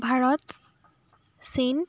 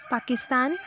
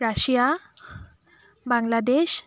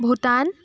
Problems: constant background noise